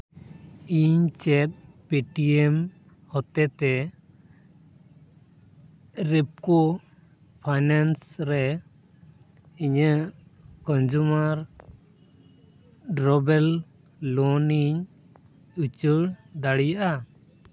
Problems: background sounds at intervals